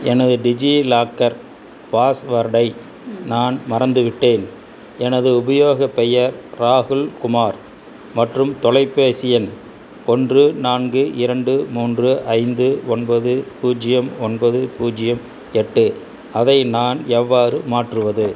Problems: constant background noise